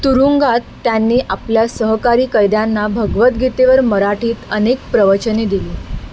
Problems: constant background noise